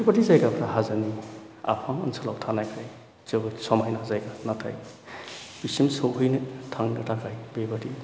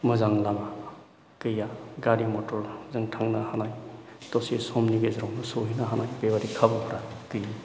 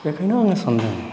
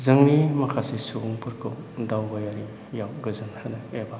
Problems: none marked